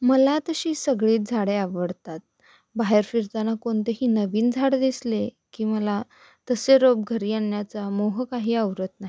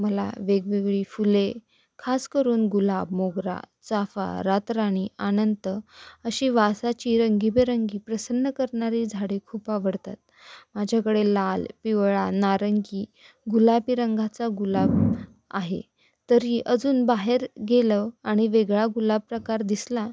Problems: none marked